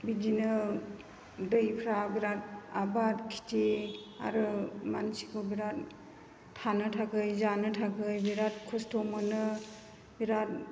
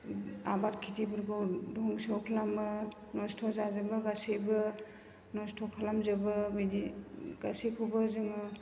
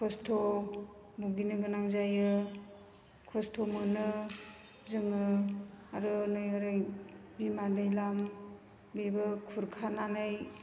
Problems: constant background noise